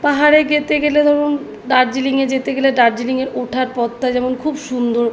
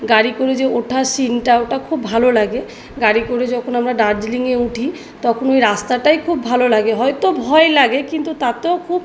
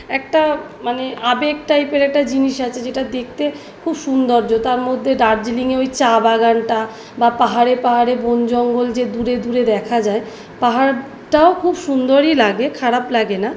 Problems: none marked